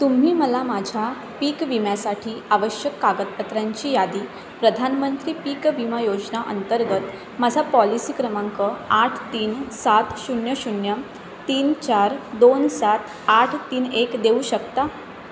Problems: constant background noise